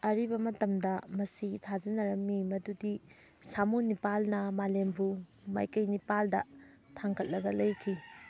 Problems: background sounds at intervals